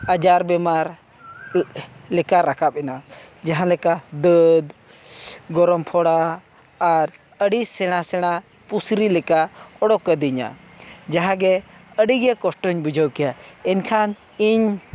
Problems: background conversations at intervals